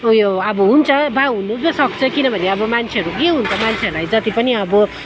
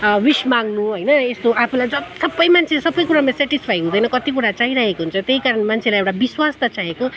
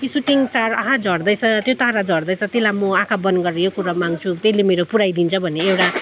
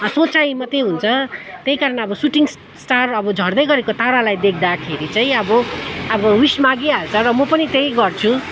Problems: background sounds at intervals, background conversations at intervals